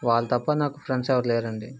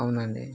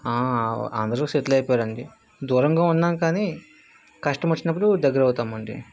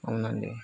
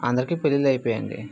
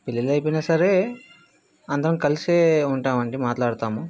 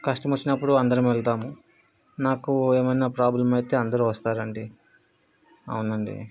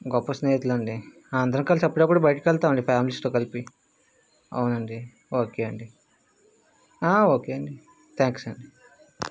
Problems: background conversations at intervals